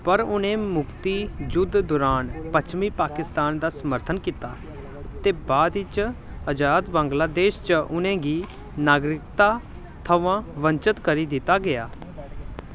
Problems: constant background noise